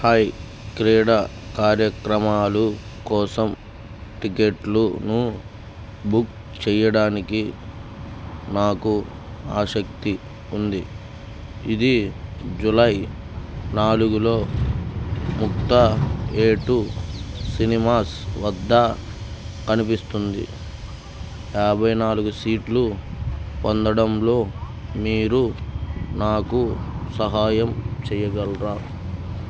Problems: constant background noise